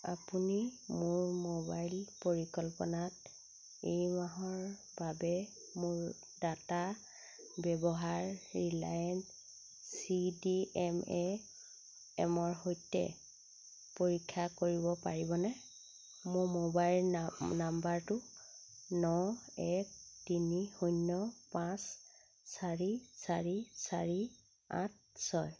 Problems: constant background noise